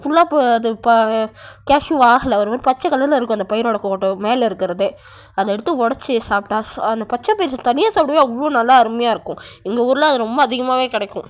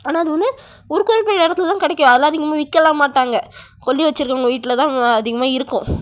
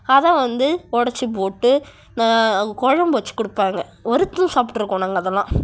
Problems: none marked